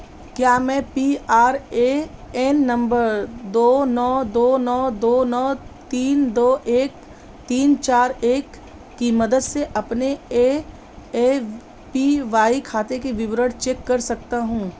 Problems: constant background noise